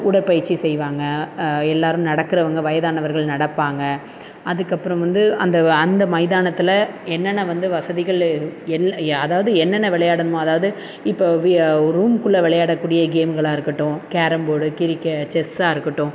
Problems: constant background noise